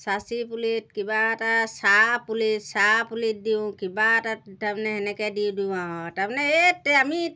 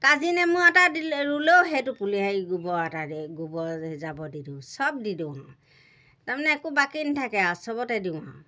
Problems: none marked